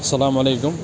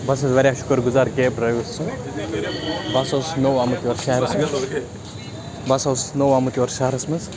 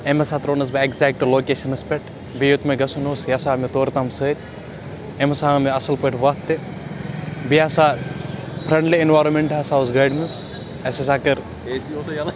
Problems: constant background noise, continuous background conversations